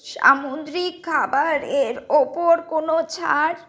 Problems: none marked